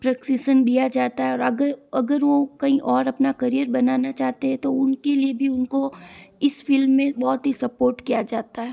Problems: none marked